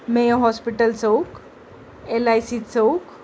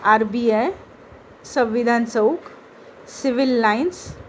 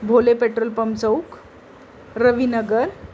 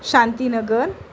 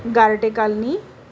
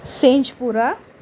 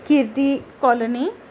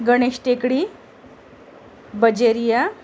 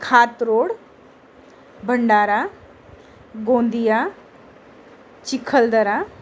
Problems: constant background noise